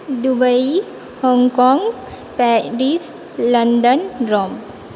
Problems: none marked